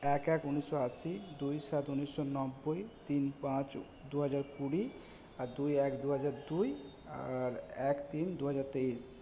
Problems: none marked